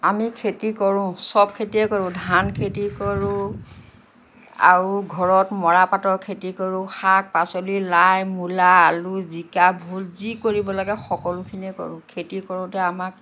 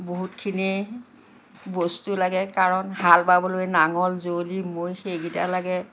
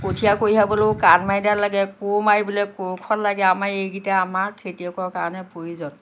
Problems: constant background noise